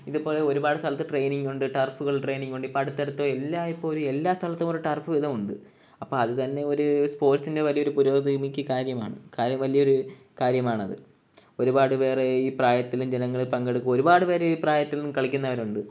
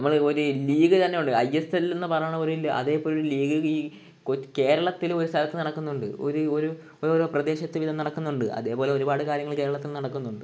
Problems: background sounds at intervals